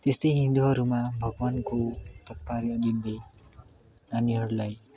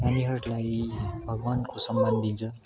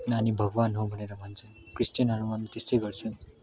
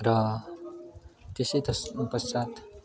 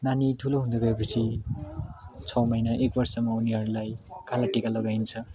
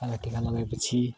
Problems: continuous background conversations